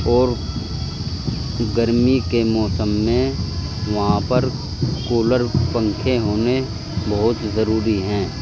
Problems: constant background noise